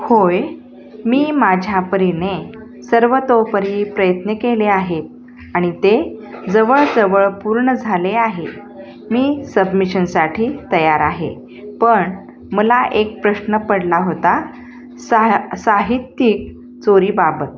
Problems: none marked